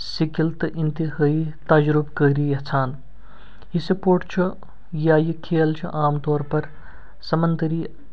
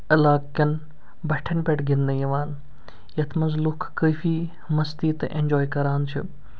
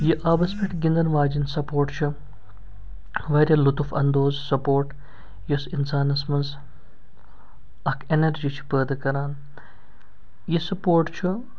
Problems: background sounds at intervals